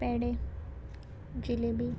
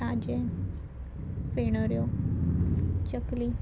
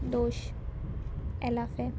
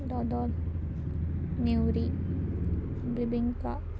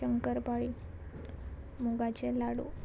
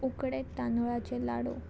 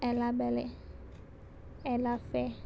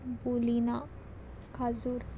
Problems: none marked